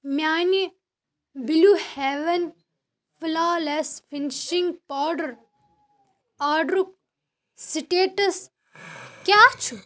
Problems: background sounds at intervals